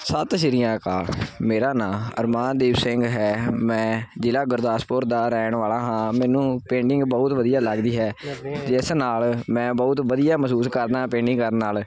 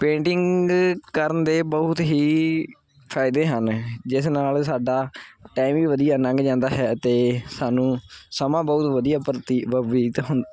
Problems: background conversations at intervals